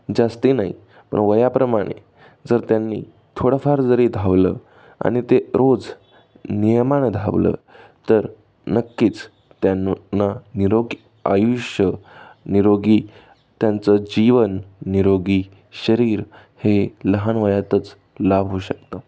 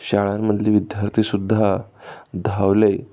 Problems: none marked